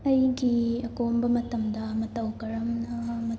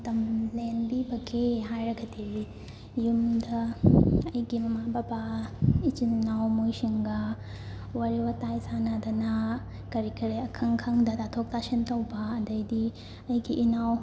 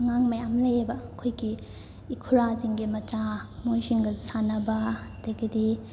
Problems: constant background noise